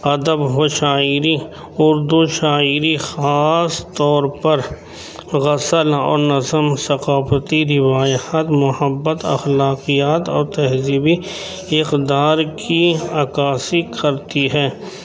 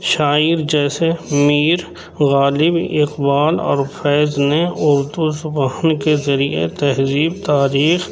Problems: constant background noise, background conversations at intervals